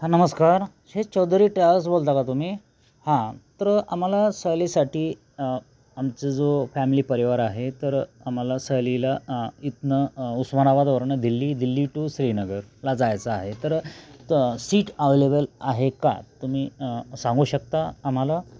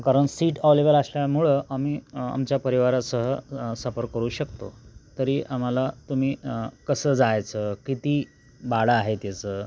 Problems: constant background noise